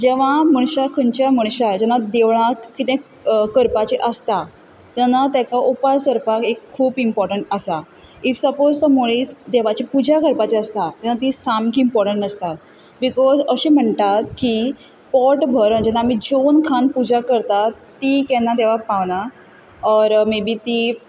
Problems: none marked